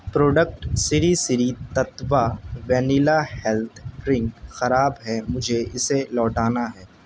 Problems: constant background noise